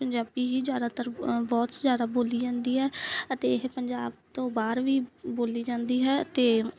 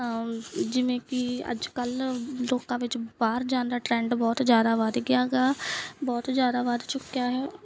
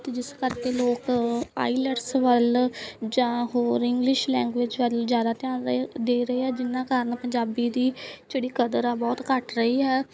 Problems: background sounds at intervals